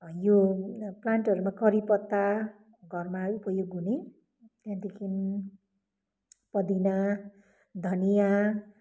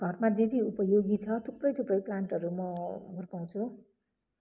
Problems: background sounds at intervals